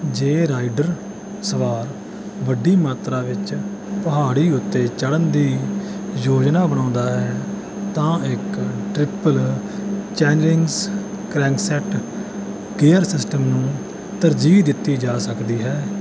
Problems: none marked